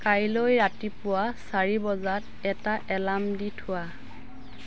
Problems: constant background noise